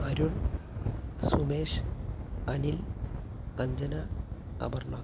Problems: constant background noise, low volume